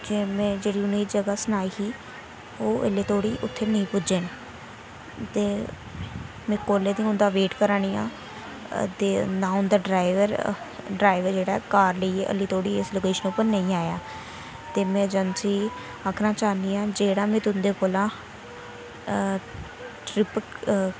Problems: constant background noise